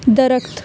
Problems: none marked